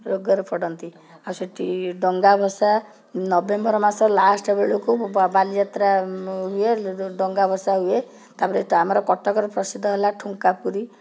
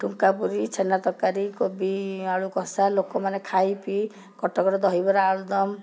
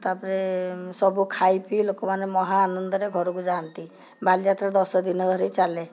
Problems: background conversations at intervals